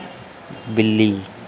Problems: none marked